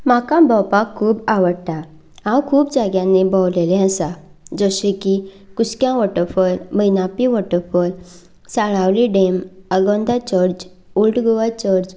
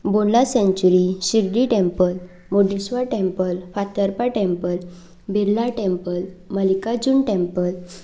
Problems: none marked